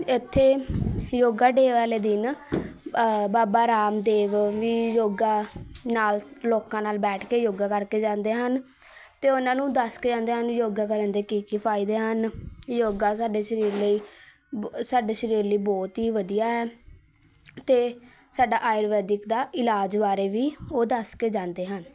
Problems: continuous background conversations